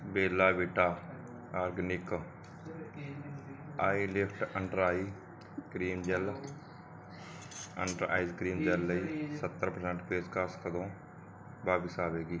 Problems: background conversations at intervals